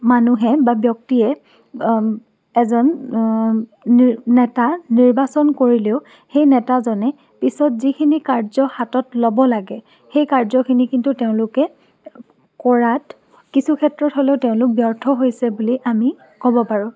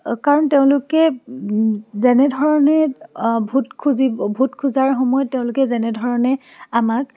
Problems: none marked